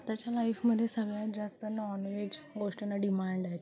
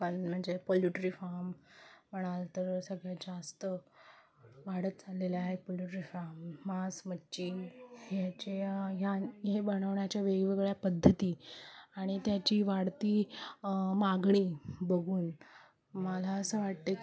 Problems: background sounds at intervals, continuous background conversations